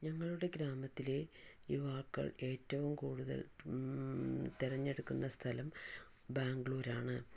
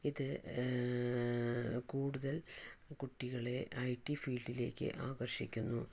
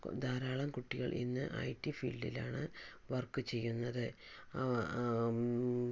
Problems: low volume